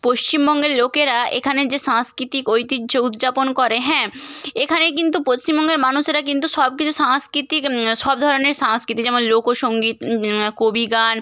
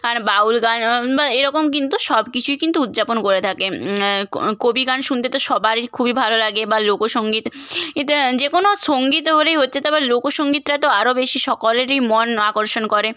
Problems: none marked